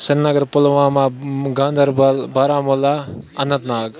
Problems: constant background noise